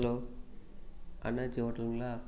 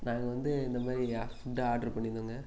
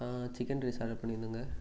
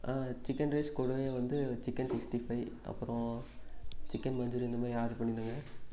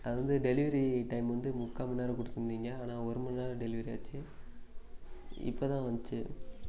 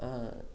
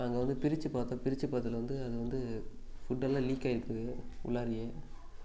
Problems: constant background noise